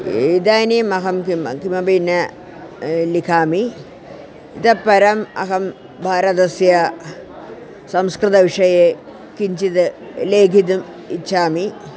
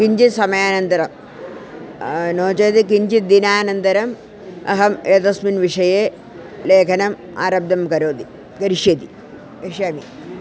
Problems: constant background noise